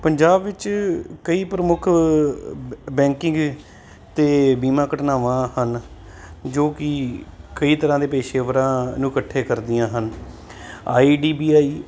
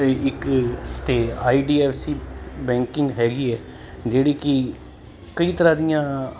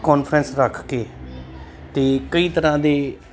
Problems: constant background noise